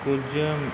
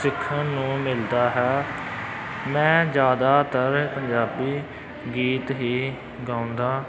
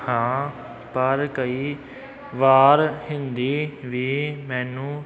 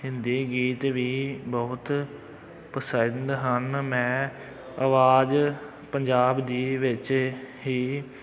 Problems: background sounds at intervals